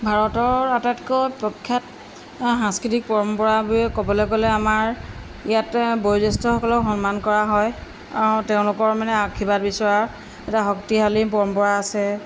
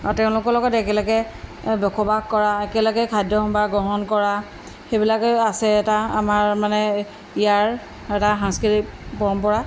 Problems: background sounds at intervals